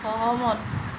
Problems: constant background noise